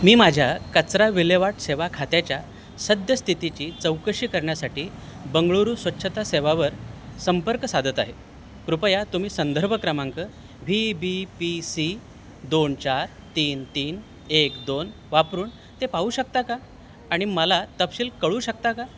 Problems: constant background noise